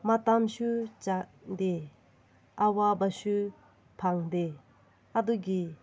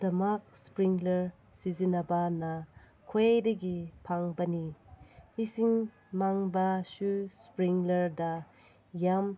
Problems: background sounds at intervals